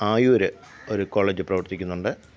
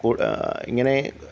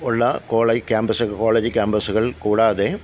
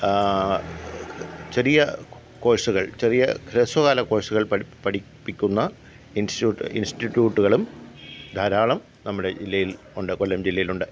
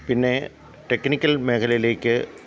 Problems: background sounds at intervals